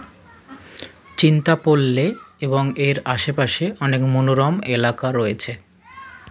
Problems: none marked